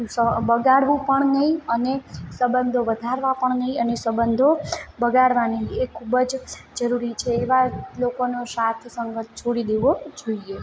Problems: background sounds at intervals, background conversations at intervals